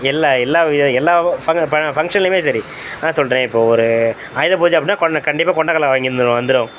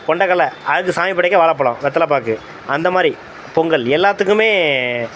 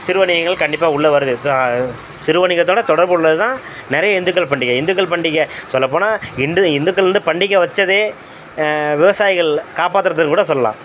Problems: constant background noise